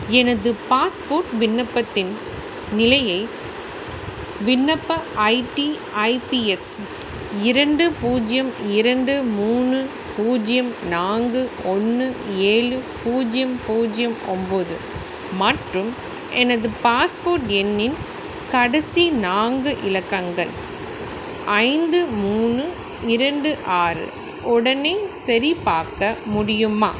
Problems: constant background noise